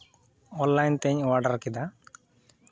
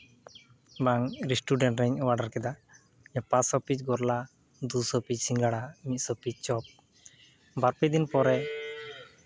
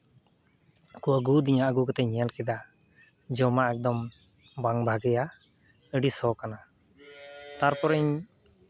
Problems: background sounds at intervals